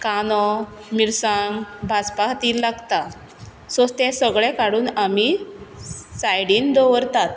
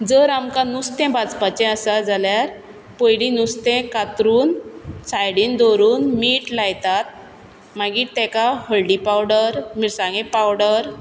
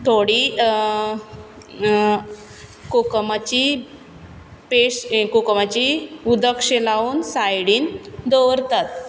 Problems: none marked